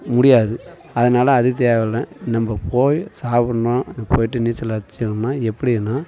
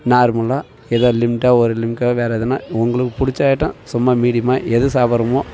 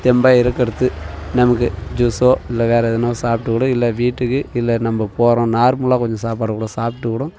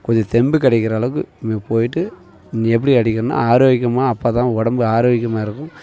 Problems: continuous background conversations